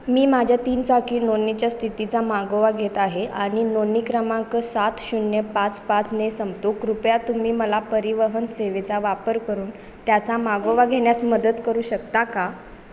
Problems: constant background noise